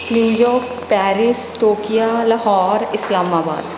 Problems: background sounds at intervals